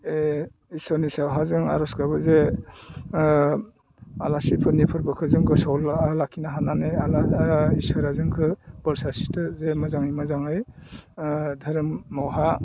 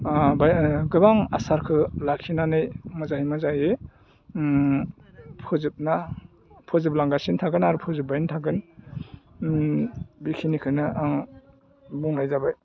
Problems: low volume